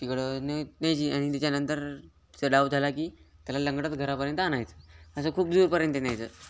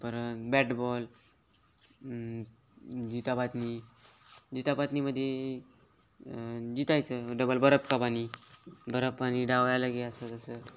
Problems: constant background noise, continuous background conversations